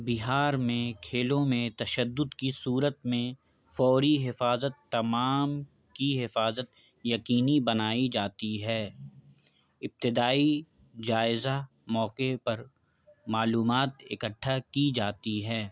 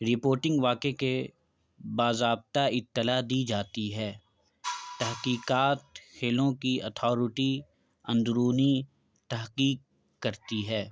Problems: background sounds at intervals